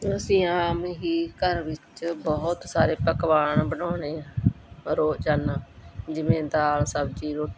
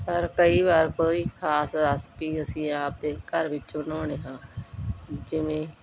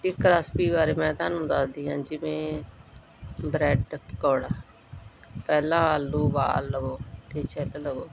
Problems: none marked